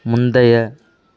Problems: none marked